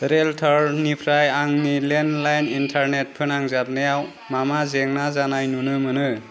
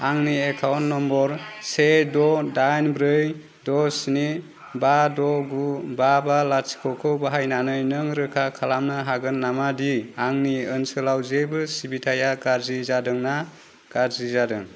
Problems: constant background noise